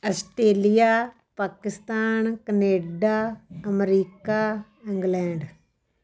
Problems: none marked